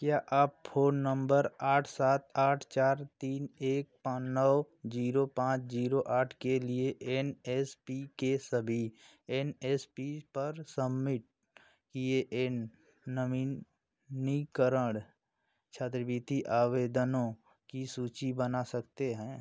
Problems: none marked